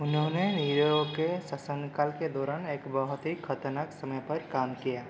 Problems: constant background noise